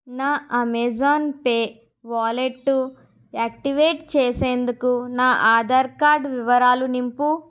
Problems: none marked